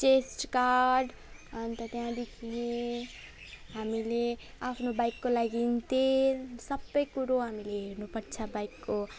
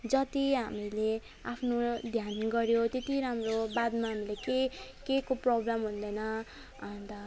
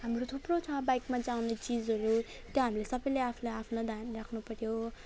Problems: none marked